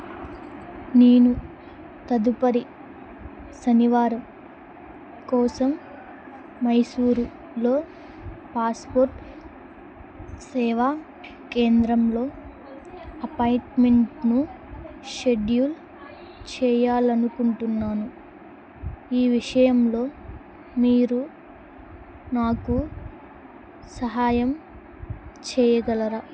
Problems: none marked